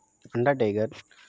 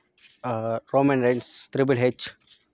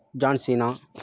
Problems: constant background noise